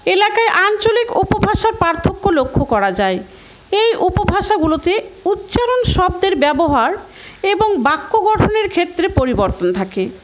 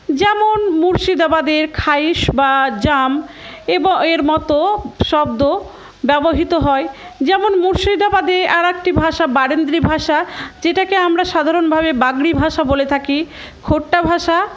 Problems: background sounds at intervals, background conversations at intervals